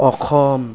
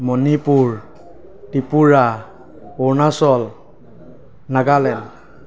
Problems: background sounds at intervals